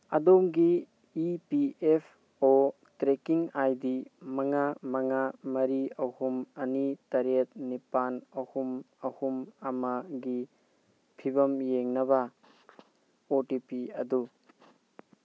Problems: constant background noise